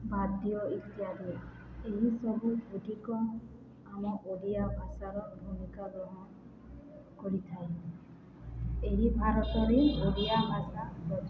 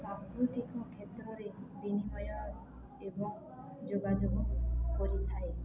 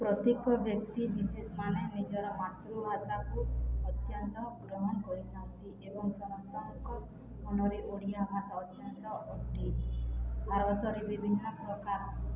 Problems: constant background noise